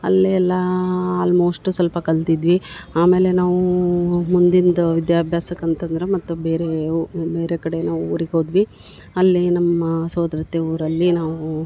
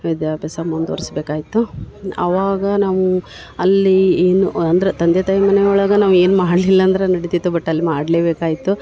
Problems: none marked